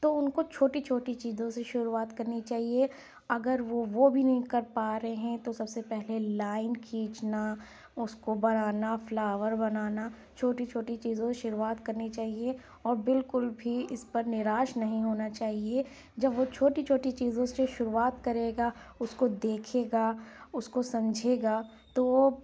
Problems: none marked